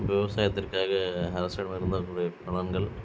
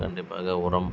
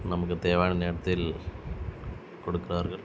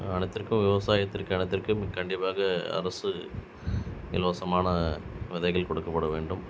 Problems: constant background noise